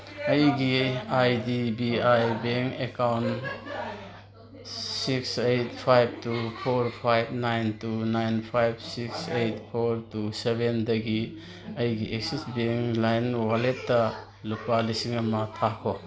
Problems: constant background noise